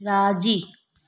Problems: none marked